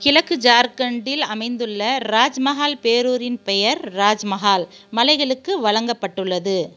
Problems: background sounds at intervals